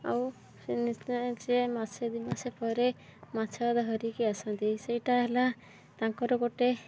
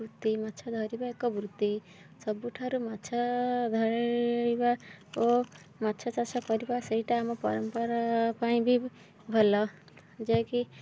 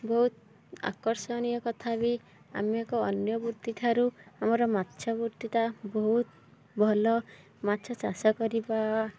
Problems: background sounds at intervals